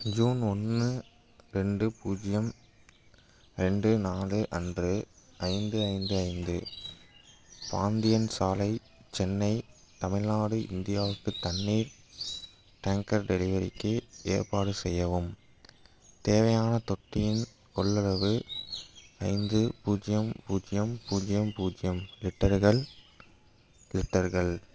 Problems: background sounds at intervals